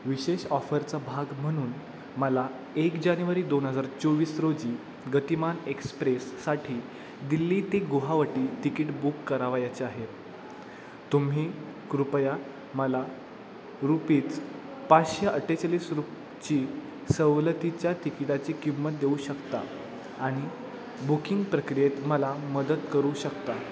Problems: constant background noise